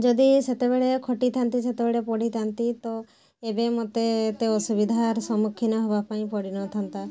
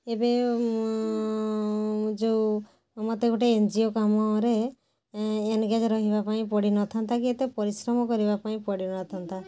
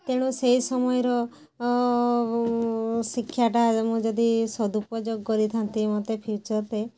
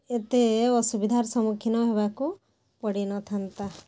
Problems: none marked